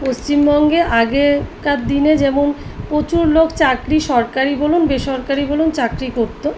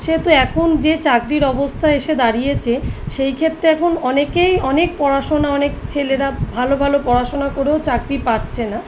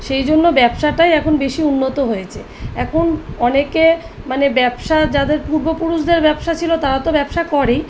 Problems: none marked